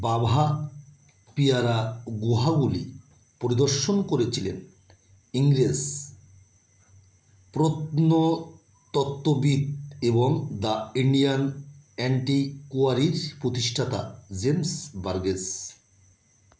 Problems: none marked